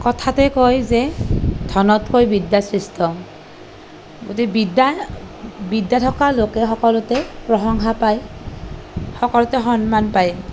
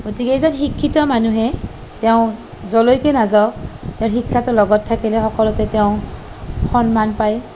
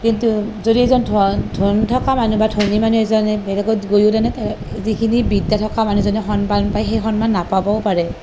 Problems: none marked